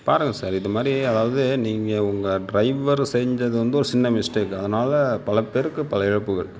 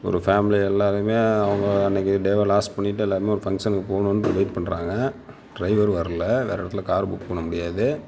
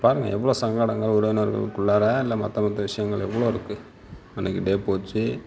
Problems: background sounds at intervals